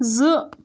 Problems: background sounds at intervals